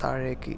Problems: low volume